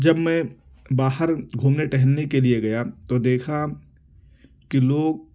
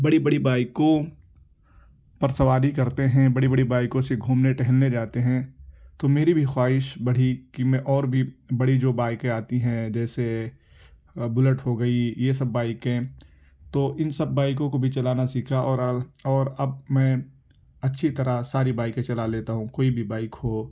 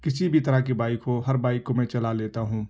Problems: background sounds at intervals